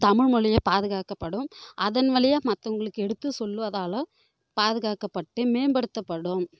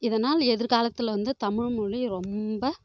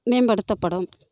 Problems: none marked